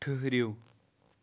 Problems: none marked